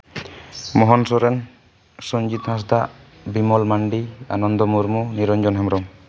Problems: none marked